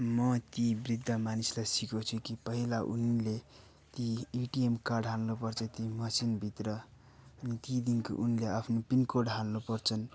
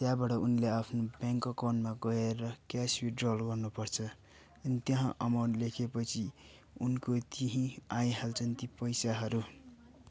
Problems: background sounds at intervals